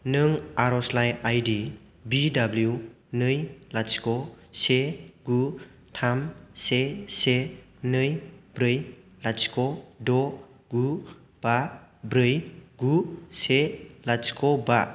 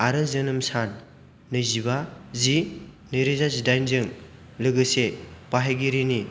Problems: constant background noise